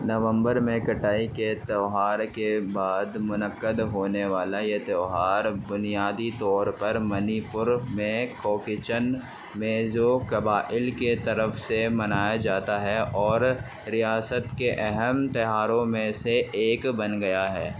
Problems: constant background noise